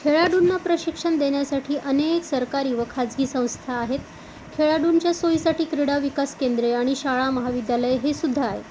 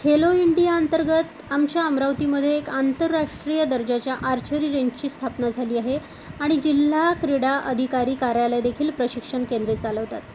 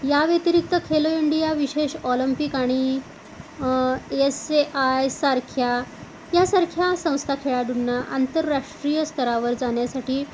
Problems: none marked